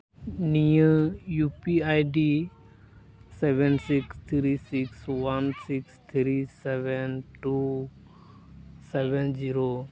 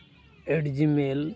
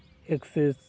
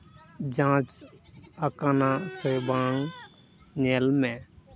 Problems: constant background noise, continuous background conversations